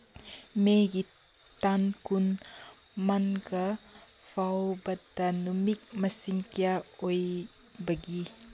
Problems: background sounds at intervals